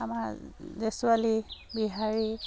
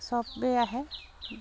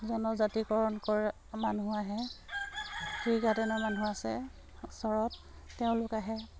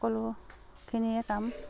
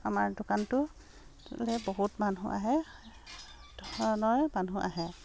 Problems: none marked